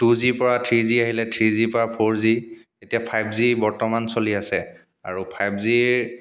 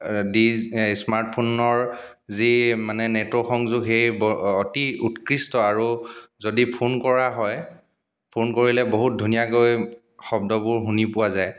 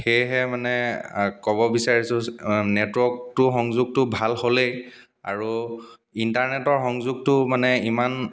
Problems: background sounds at intervals